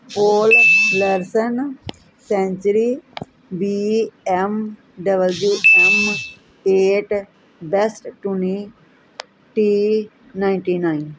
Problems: constant background noise